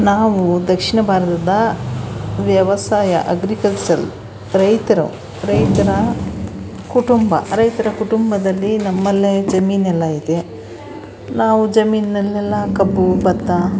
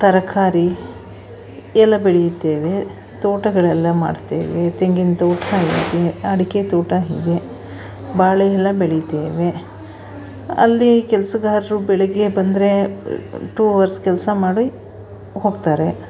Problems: background sounds at intervals